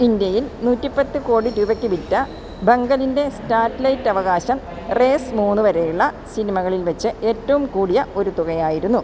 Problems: constant background noise